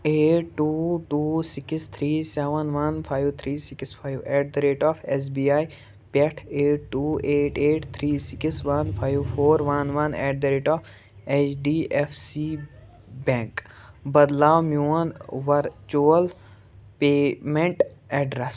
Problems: background sounds at intervals